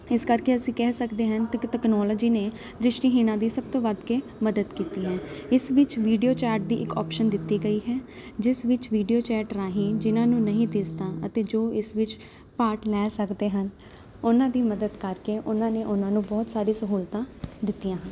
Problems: constant background noise